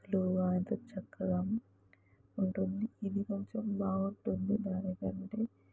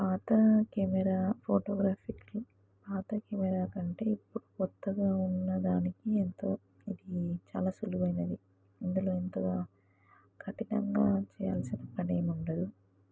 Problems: background sounds at intervals, low volume